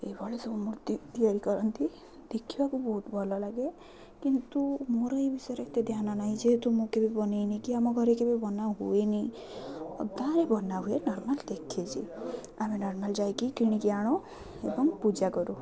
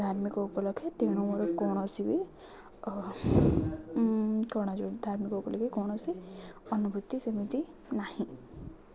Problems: none marked